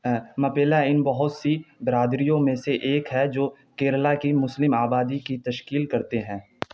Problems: background sounds at intervals